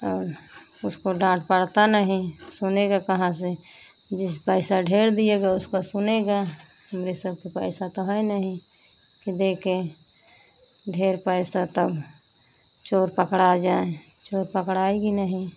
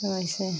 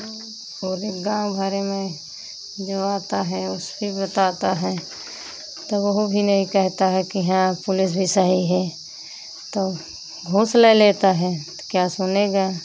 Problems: constant background noise